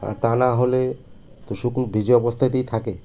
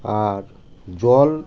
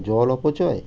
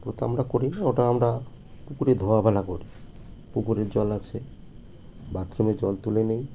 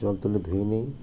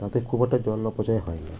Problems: none marked